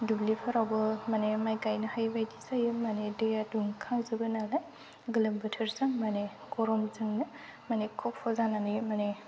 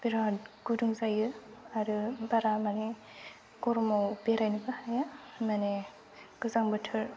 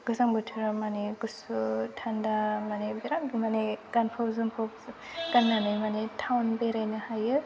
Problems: none marked